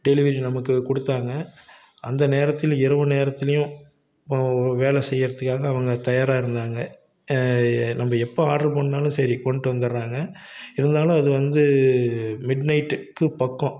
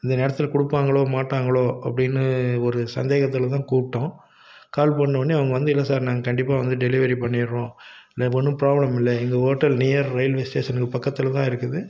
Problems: none marked